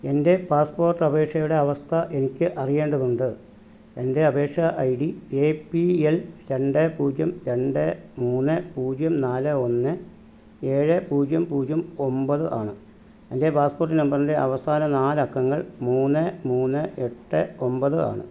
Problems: none marked